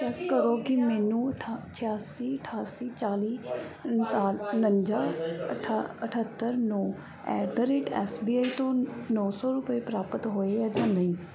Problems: none marked